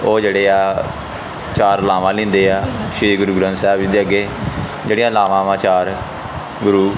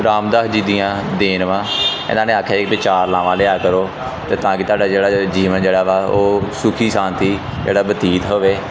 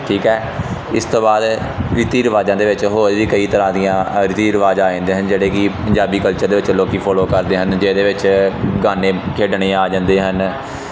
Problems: constant background noise